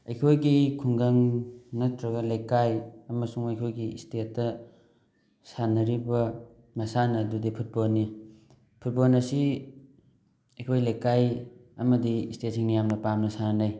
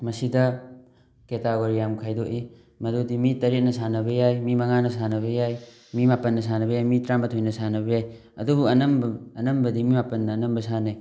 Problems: none marked